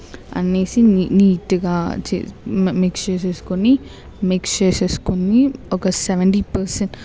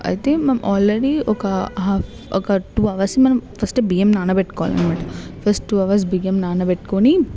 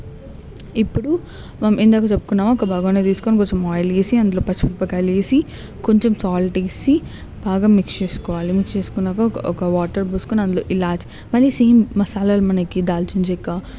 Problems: constant background noise, background conversations at intervals